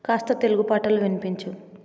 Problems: none marked